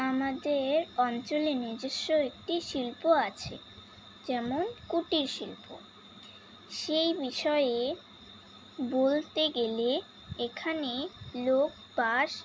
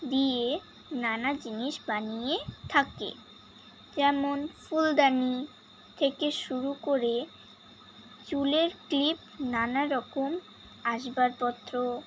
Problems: constant background noise